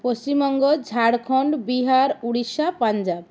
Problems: constant background noise